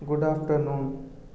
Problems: none marked